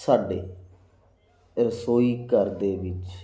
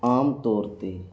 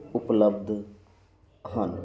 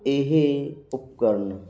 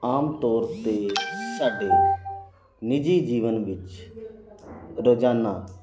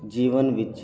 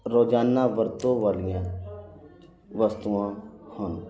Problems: none marked